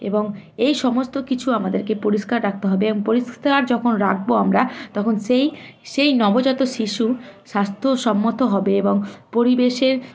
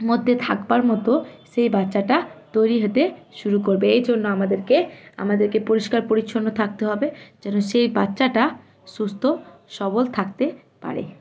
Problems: constant background noise, continuous background conversations